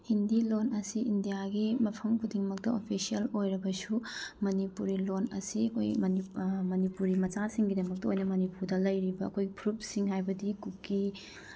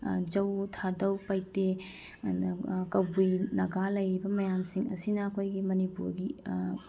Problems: background sounds at intervals